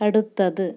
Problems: none marked